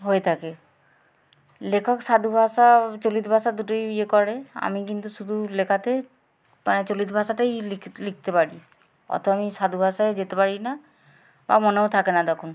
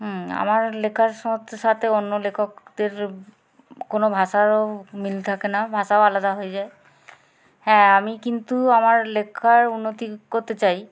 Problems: constant background noise, background conversations at intervals